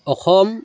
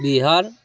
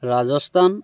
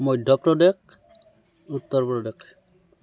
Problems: none marked